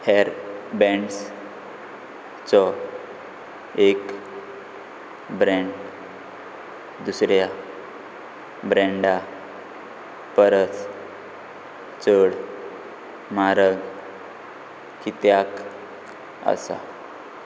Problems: constant background noise